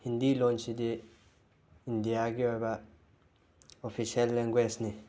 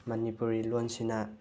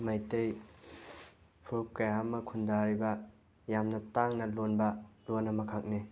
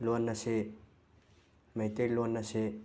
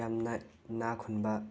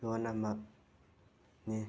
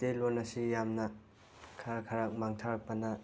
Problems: background sounds at intervals